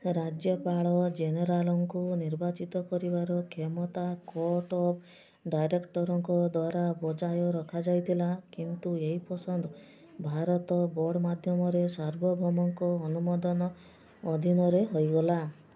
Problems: background sounds at intervals, background conversations at intervals